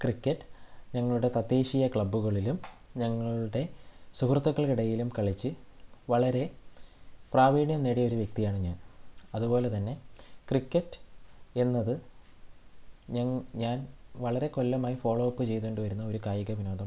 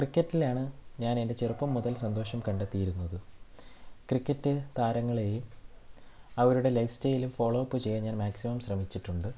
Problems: low volume